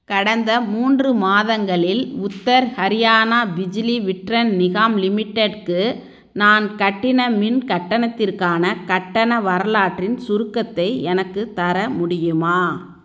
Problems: background sounds at intervals